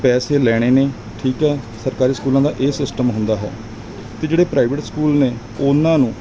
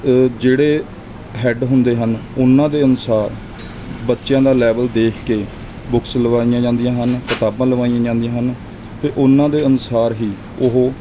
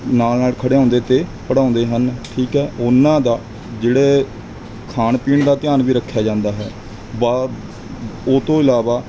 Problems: constant background noise